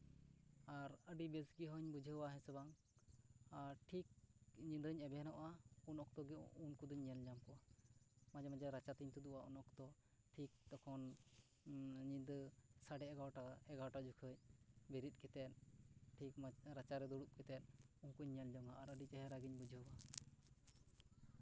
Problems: background sounds at intervals, low volume